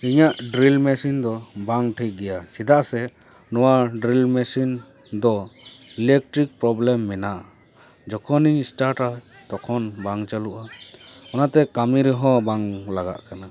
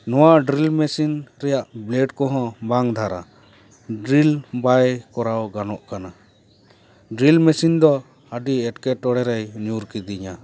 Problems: background conversations at intervals